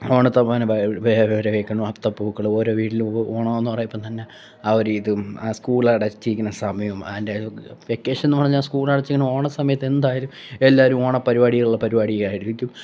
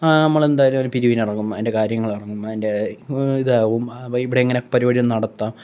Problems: background sounds at intervals